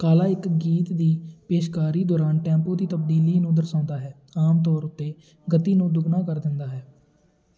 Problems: background conversations at intervals